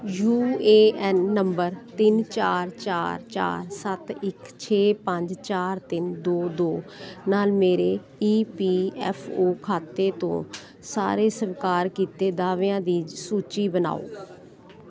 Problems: constant background noise